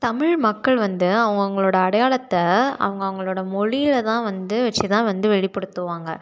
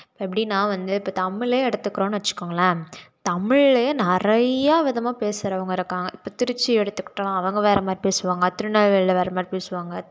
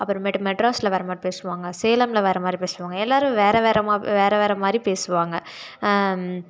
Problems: none marked